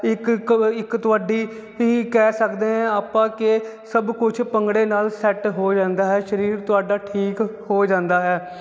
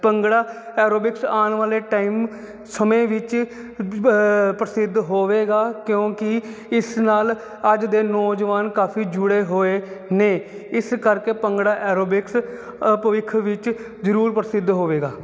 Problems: constant background noise